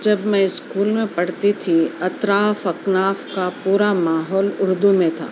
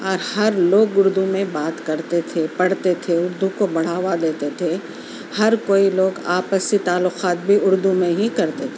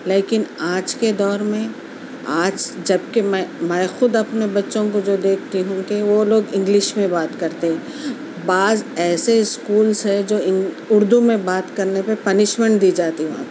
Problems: constant background noise